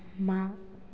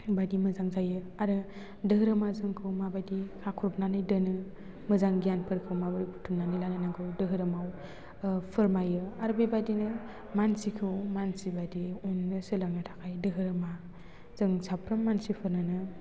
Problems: constant background noise